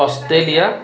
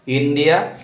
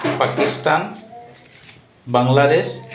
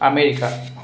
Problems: constant background noise, background conversations at intervals